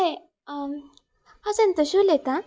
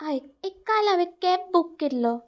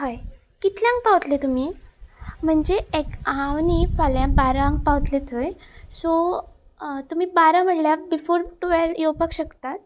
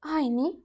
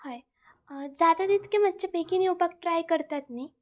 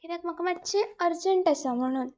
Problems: constant background noise